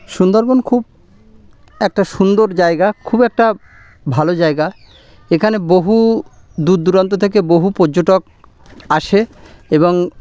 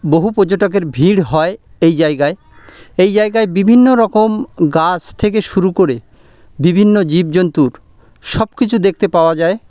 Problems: constant background noise